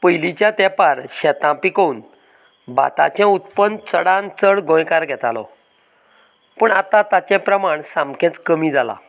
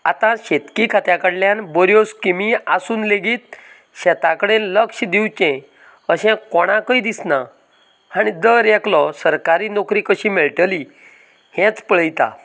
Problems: none marked